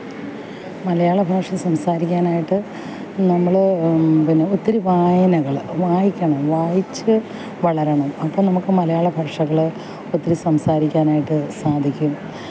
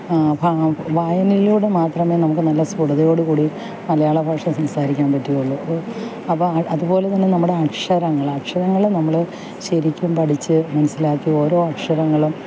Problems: background sounds at intervals